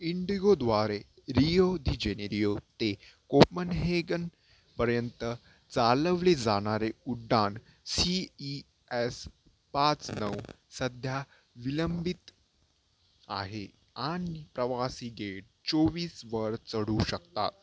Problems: constant background noise, low volume